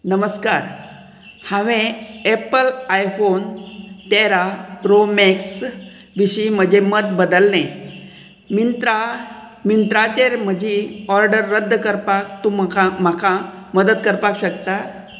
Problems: none marked